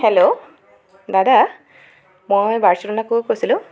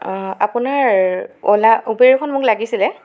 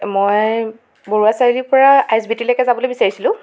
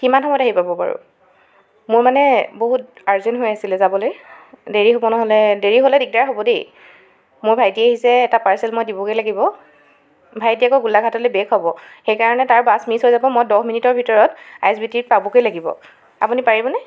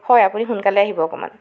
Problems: background sounds at intervals, continuous background conversations